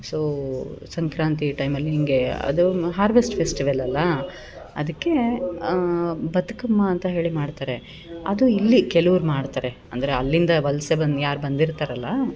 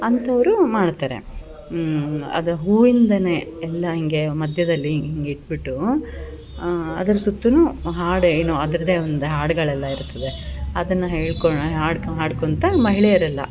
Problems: none marked